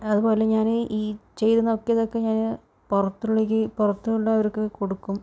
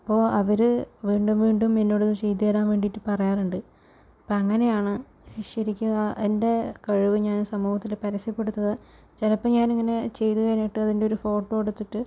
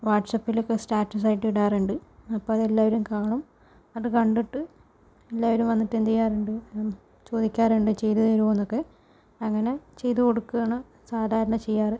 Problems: constant background noise, low volume